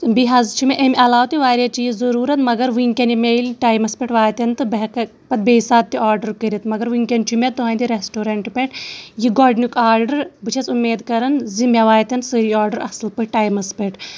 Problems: background sounds at intervals